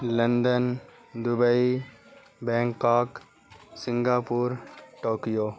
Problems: constant background noise